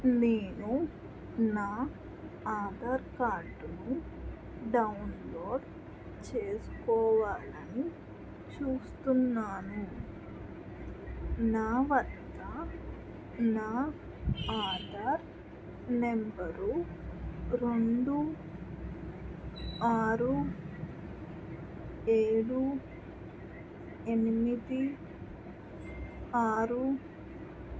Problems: constant background noise